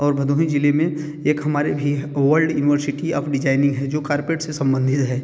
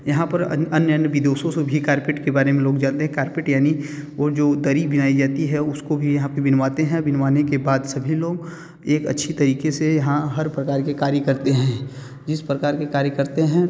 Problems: none marked